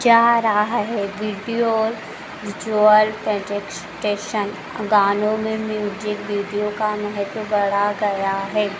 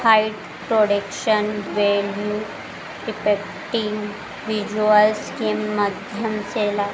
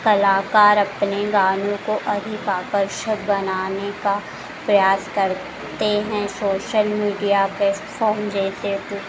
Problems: background sounds at intervals